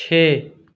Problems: none marked